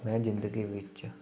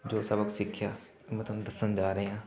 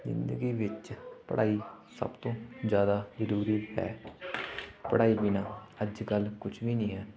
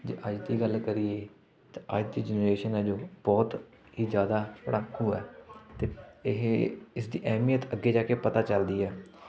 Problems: constant background noise, continuous background conversations